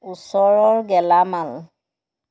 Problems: background sounds at intervals